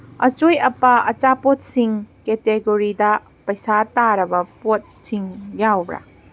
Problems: none marked